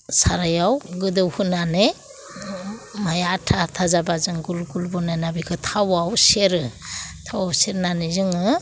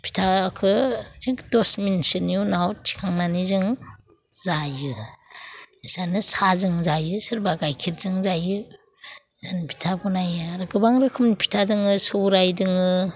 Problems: none marked